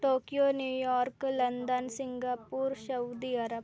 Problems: none marked